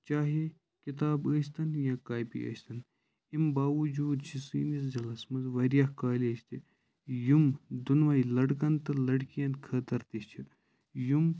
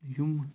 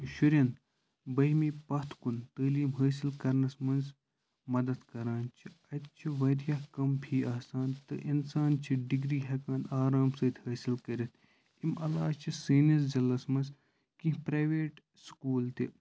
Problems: background sounds at intervals